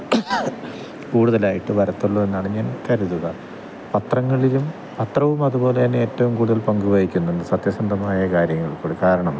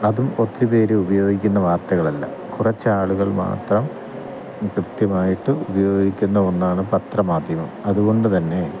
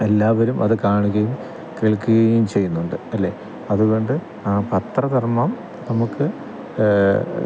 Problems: constant background noise, low volume